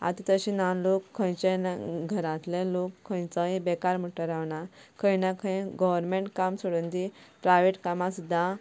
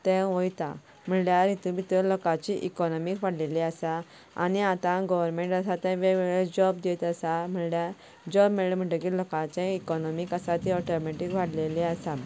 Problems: none marked